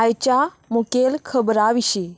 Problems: constant background noise